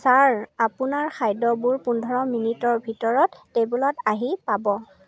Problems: constant background noise, background conversations at intervals